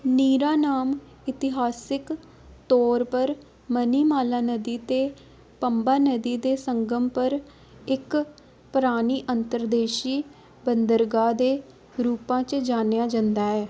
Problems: constant background noise